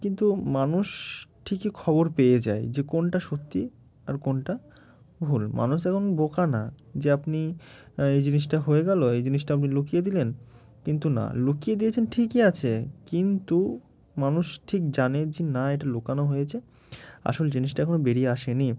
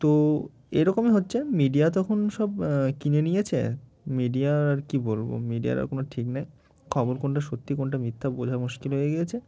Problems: none marked